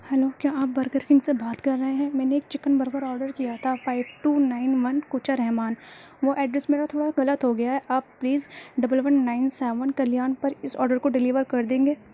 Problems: constant background noise